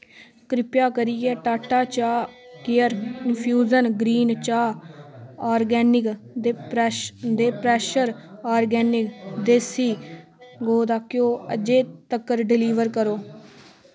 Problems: background sounds at intervals